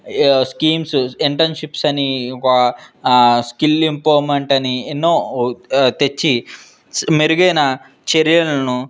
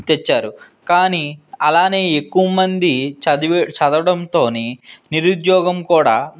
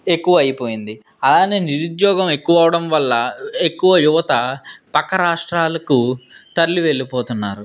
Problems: background sounds at intervals